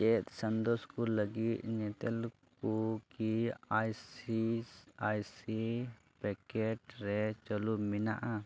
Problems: low volume